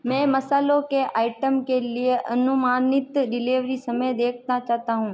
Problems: none marked